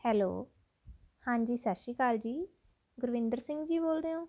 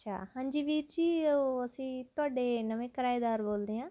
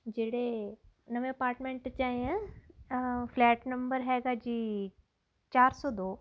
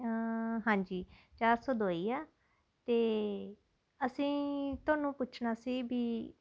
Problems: constant background noise